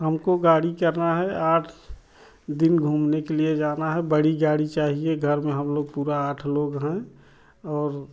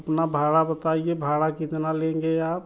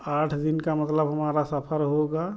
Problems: low volume